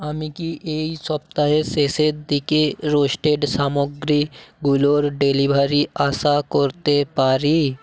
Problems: background sounds at intervals